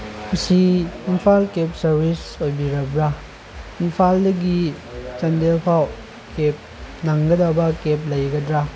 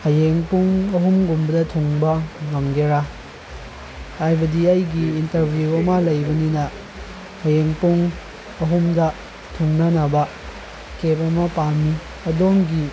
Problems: constant background noise